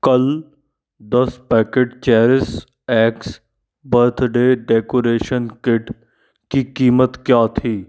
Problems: background sounds at intervals